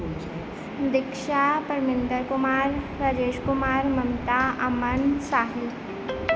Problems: background sounds at intervals